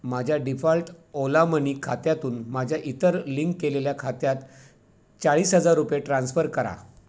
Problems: none marked